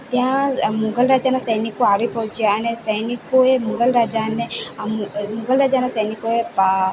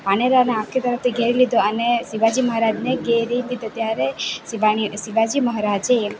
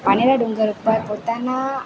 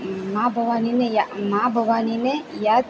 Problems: constant background noise